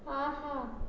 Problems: low volume